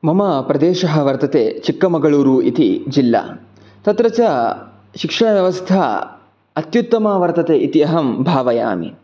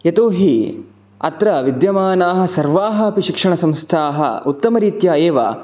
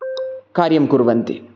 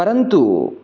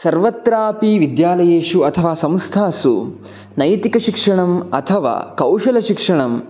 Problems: none marked